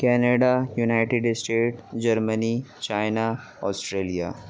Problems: none marked